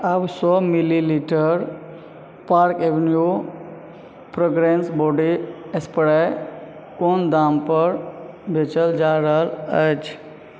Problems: background sounds at intervals